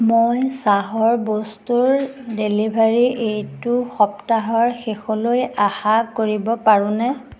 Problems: none marked